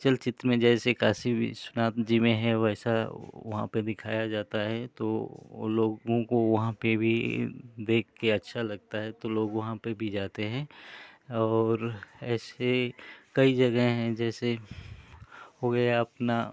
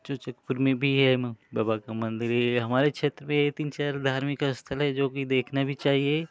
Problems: constant background noise